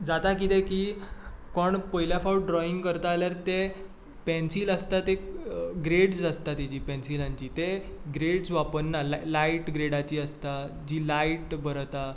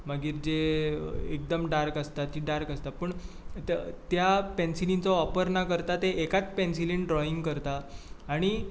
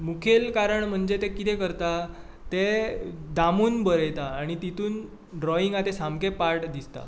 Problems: background sounds at intervals